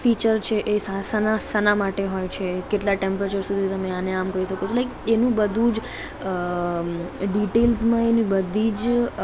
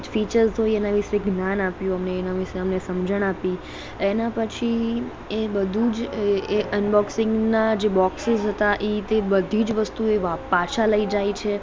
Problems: background conversations at intervals